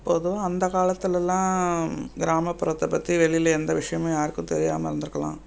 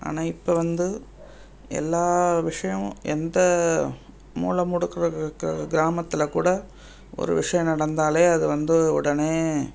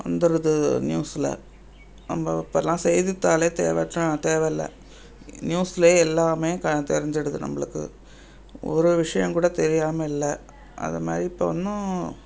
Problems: none marked